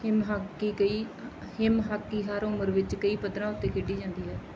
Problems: background sounds at intervals